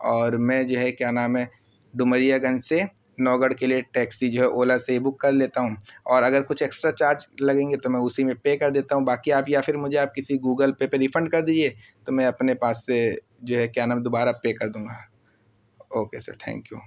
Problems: constant background noise